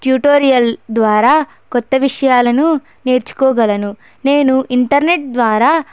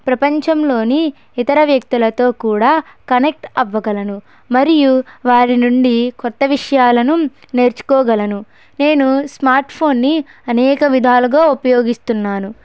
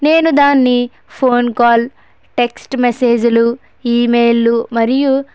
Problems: none marked